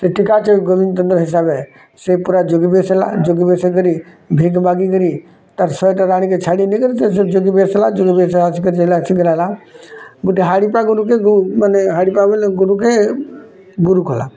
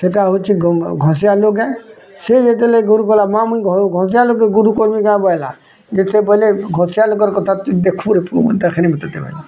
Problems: background sounds at intervals